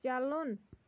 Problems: background sounds at intervals